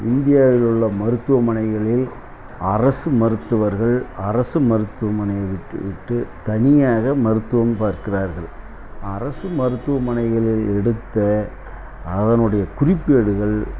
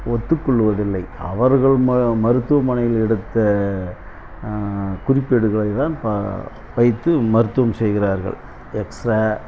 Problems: none marked